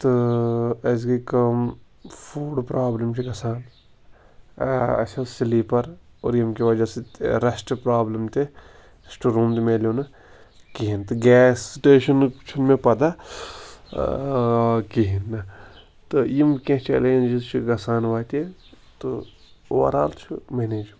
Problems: constant background noise